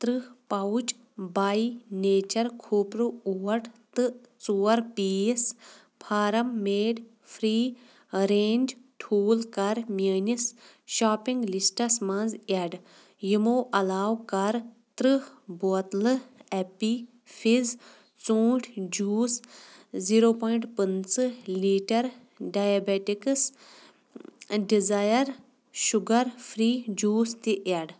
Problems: background sounds at intervals